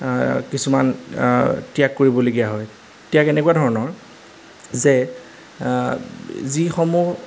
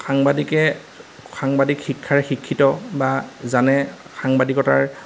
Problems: none marked